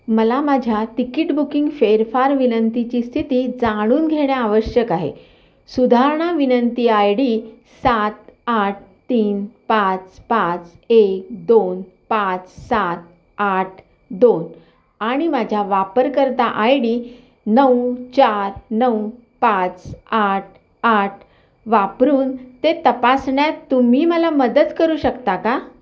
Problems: background sounds at intervals, background conversations at intervals, echo